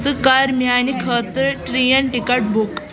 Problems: constant background noise, background conversations at intervals